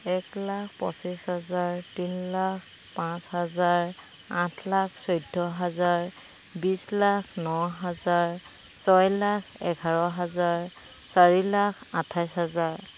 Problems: constant background noise